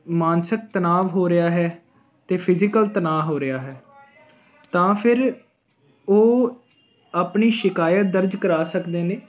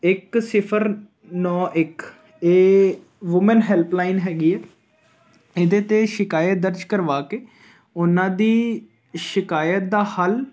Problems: continuous background conversations